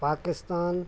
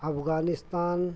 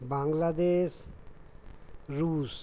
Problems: constant background noise, background conversations at intervals